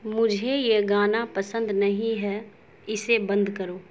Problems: constant background noise